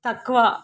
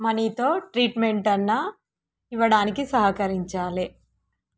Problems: background sounds at intervals